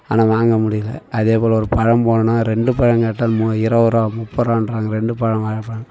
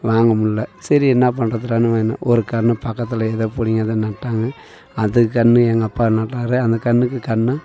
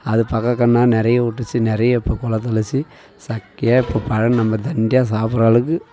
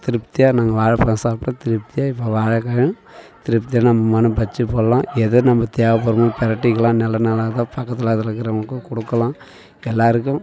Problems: background sounds at intervals, continuous background conversations